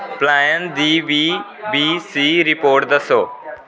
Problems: constant background noise